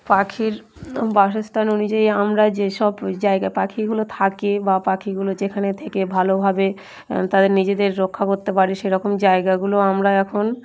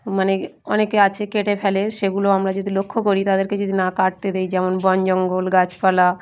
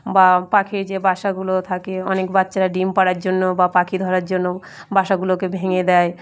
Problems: none marked